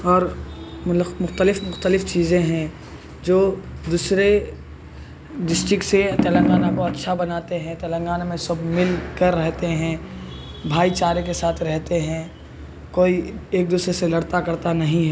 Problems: constant background noise, background conversations at intervals